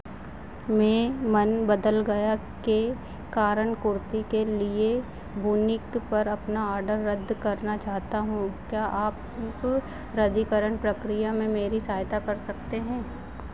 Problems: none marked